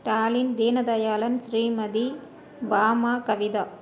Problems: none marked